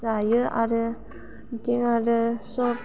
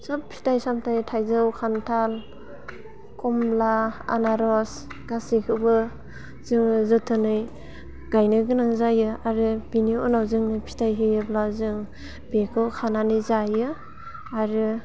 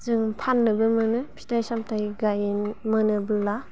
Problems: constant background noise